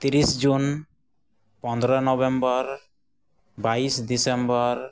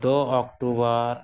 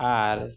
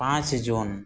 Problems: none marked